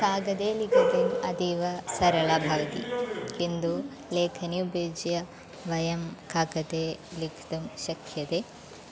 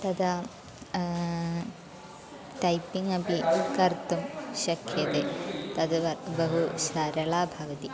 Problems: constant background noise